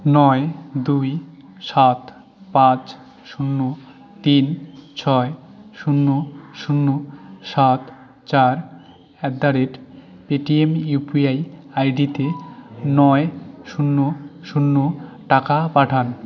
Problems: none marked